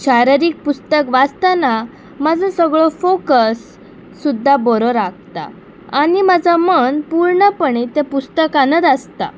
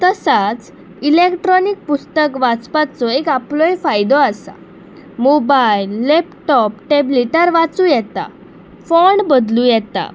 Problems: none marked